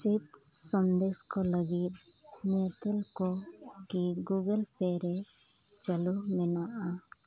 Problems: constant background noise, background conversations at intervals